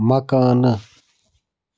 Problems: background sounds at intervals